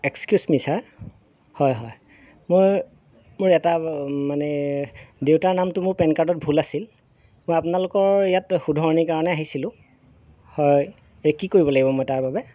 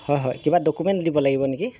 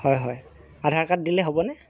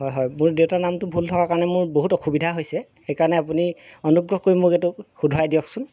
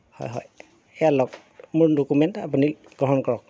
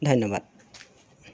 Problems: none marked